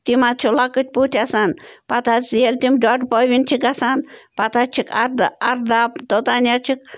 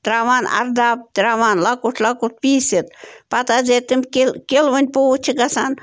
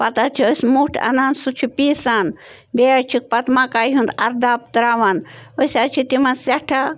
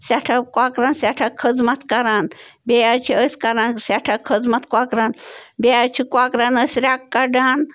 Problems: none marked